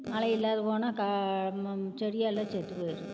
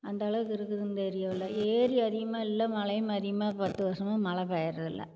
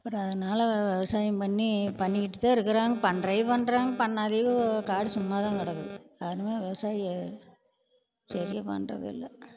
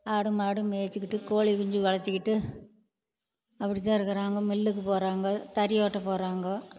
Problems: constant background noise